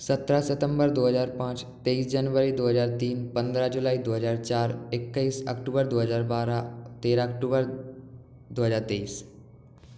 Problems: background sounds at intervals